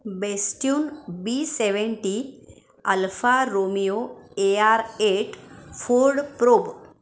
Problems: constant background noise, background conversations at intervals